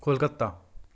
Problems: background sounds at intervals